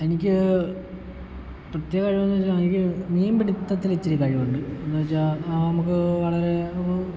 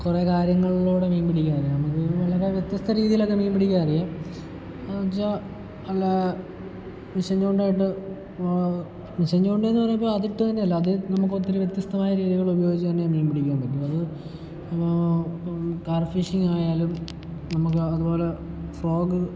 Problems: background sounds at intervals, low volume